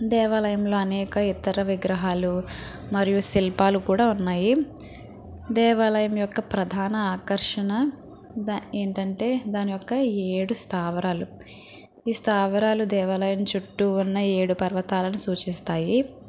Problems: constant background noise, background conversations at intervals